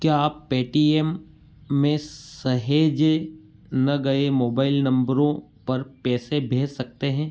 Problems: background sounds at intervals